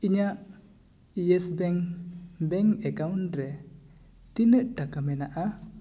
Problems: echo